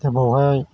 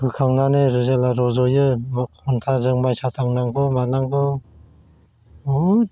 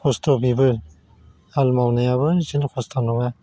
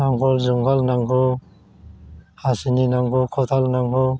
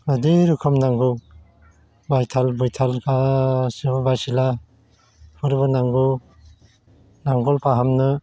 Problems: constant background noise